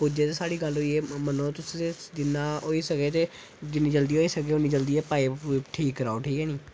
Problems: constant background noise